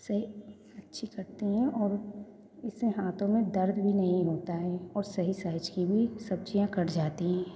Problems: background sounds at intervals, echo